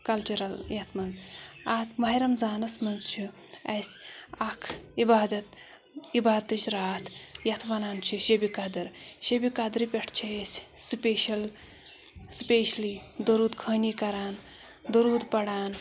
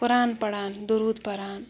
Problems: background sounds at intervals